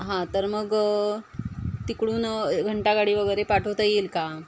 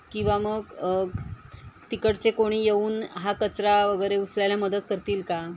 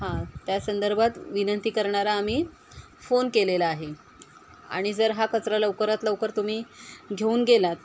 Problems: none marked